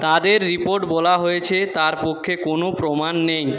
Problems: background conversations at intervals